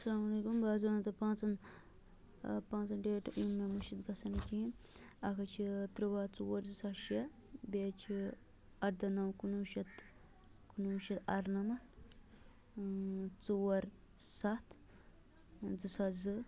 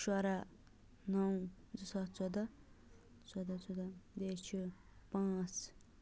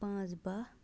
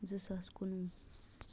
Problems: low volume